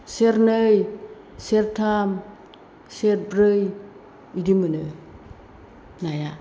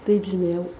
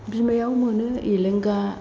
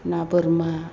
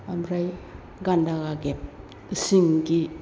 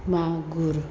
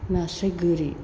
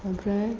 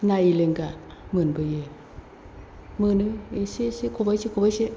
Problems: none marked